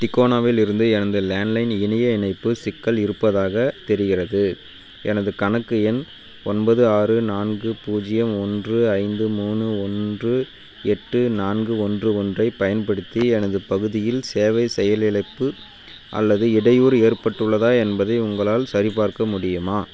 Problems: constant background noise